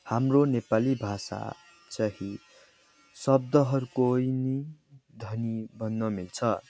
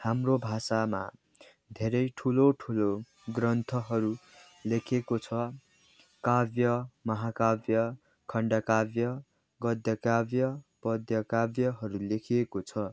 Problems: background sounds at intervals, background conversations at intervals